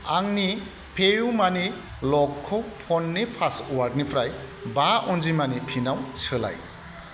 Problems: constant background noise